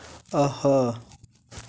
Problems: constant background noise